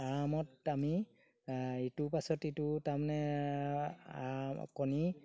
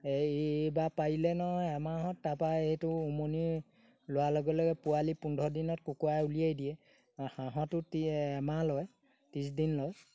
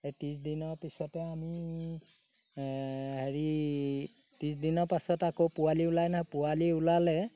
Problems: background sounds at intervals